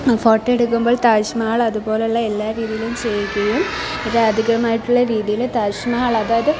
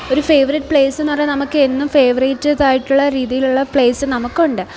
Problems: none marked